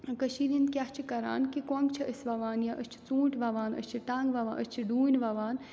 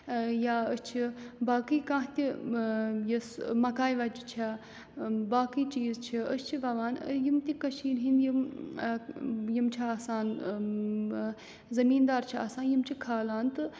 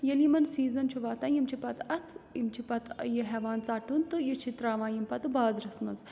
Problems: background sounds at intervals